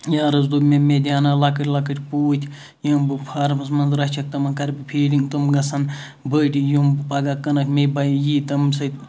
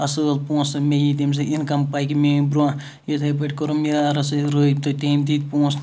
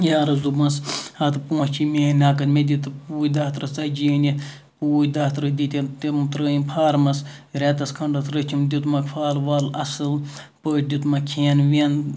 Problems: background sounds at intervals